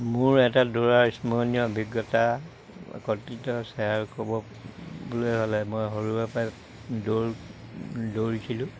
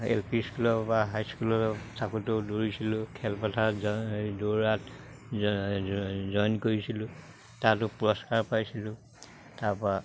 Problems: none marked